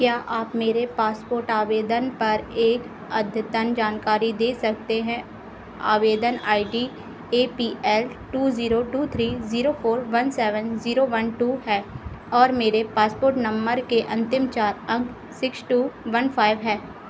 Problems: constant background noise